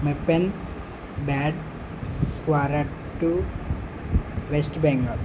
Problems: constant background noise